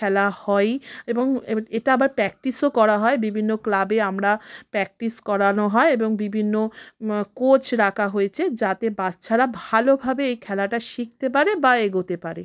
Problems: none marked